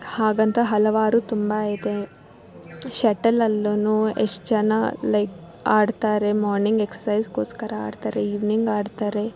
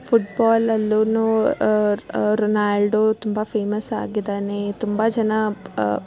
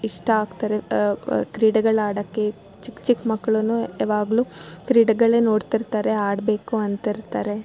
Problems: background sounds at intervals